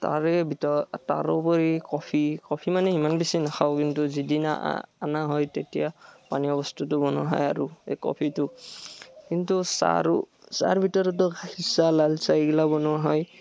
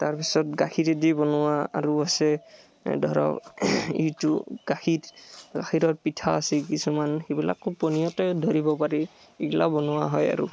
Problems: none marked